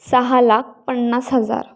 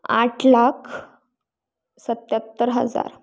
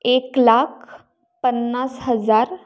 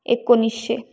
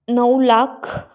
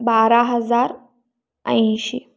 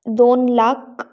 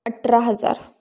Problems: none marked